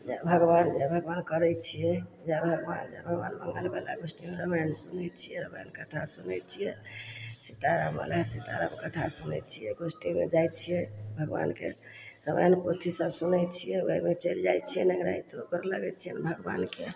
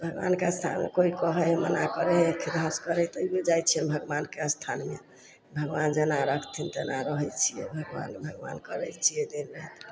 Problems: none marked